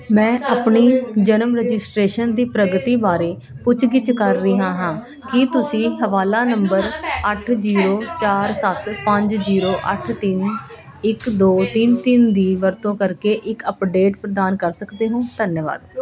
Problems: none marked